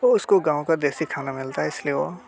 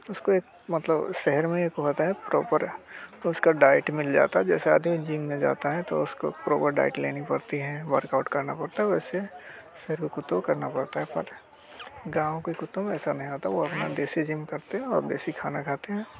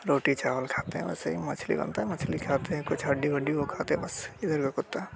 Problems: constant background noise